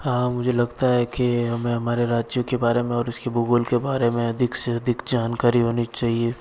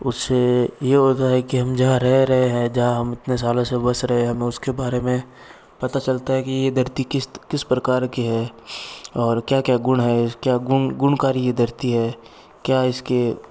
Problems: none marked